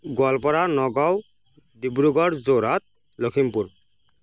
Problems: background sounds at intervals